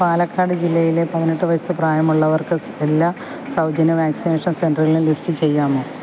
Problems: none marked